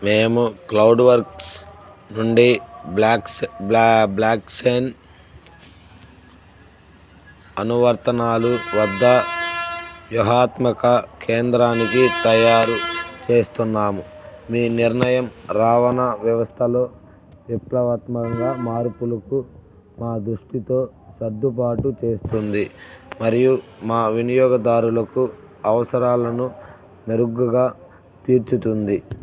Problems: none marked